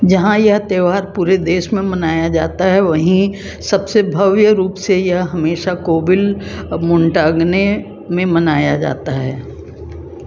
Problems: constant background noise